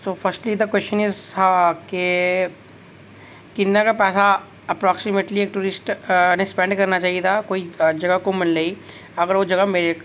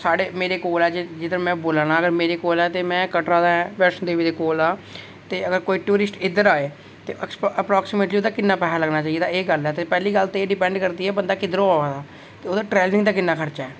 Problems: none marked